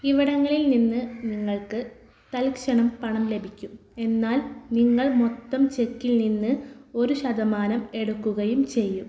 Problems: background sounds at intervals